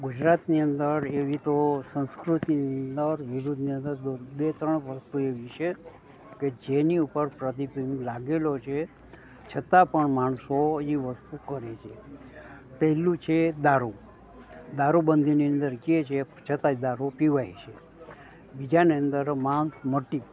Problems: none marked